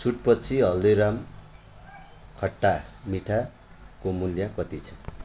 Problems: background sounds at intervals